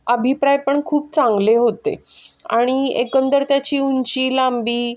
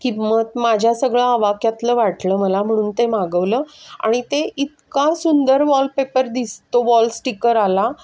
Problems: background sounds at intervals